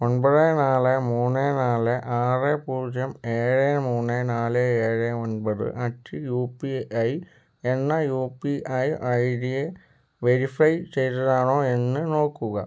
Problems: none marked